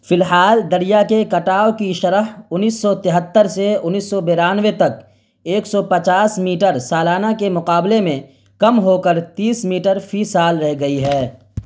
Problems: constant background noise